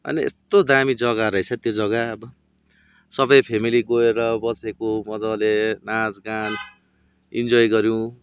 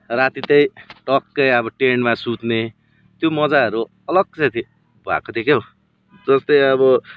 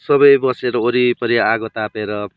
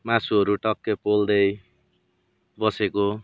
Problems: constant background noise